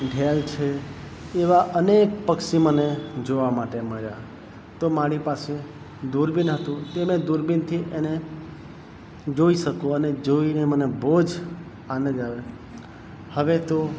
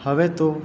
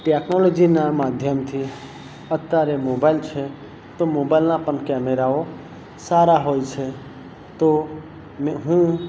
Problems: constant background noise